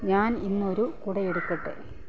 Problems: low volume